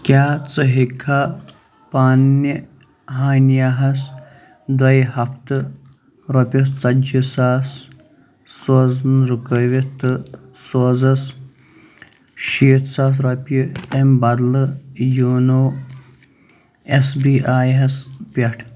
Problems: background sounds at intervals